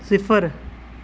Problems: constant background noise